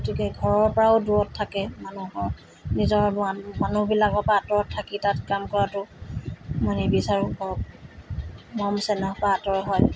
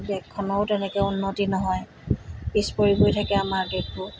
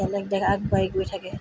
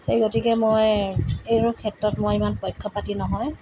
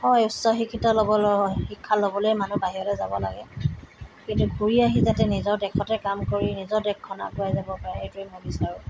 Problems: constant background noise